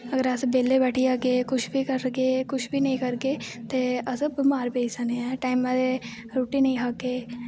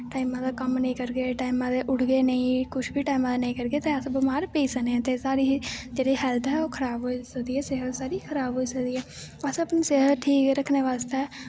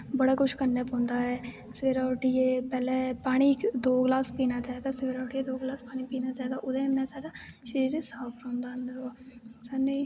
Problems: constant background noise